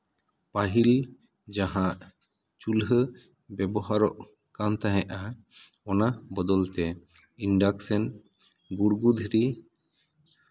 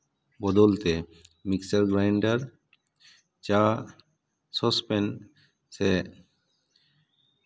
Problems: none marked